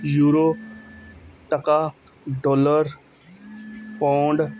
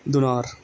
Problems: background sounds at intervals, background conversations at intervals